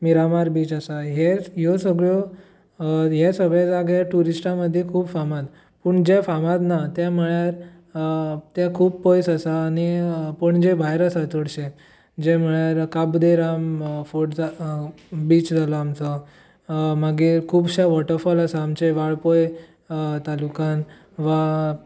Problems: none marked